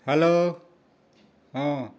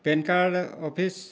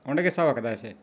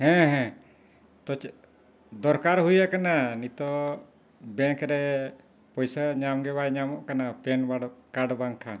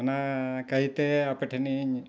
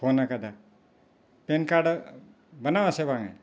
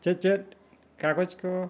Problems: none marked